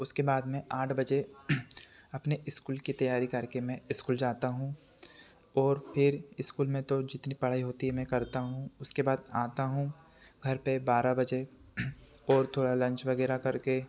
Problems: constant background noise